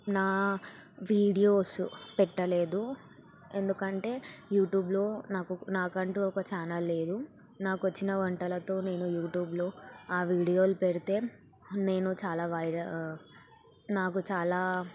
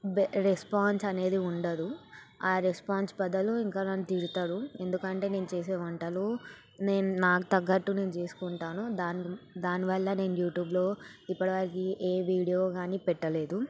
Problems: background sounds at intervals